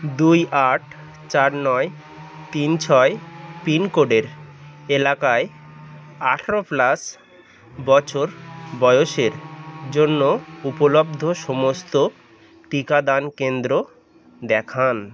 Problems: none marked